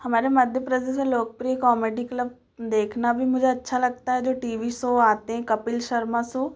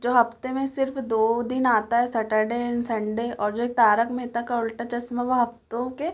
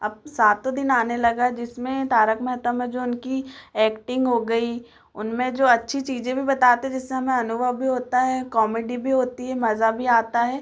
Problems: none marked